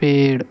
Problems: none marked